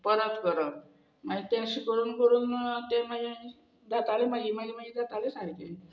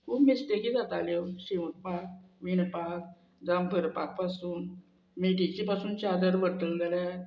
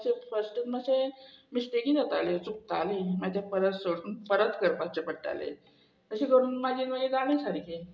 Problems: none marked